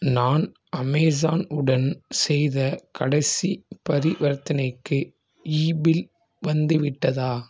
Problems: none marked